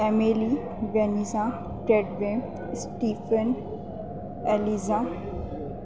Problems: constant background noise